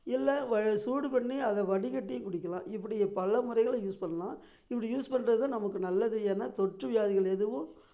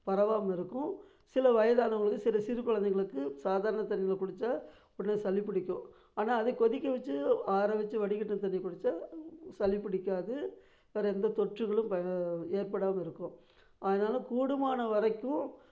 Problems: none marked